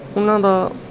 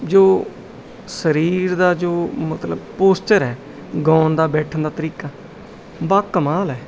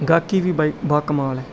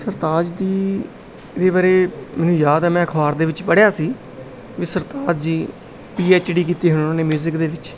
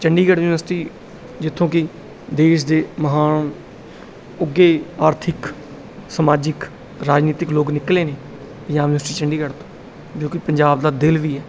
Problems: background sounds at intervals